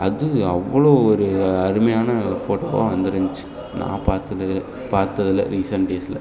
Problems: background sounds at intervals, background conversations at intervals